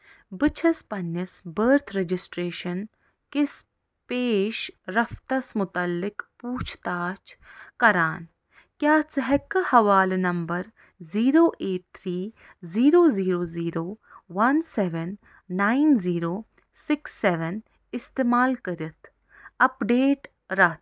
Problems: none marked